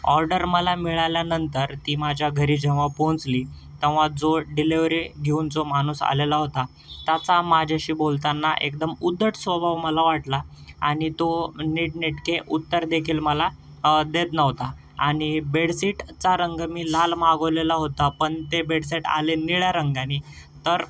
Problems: none marked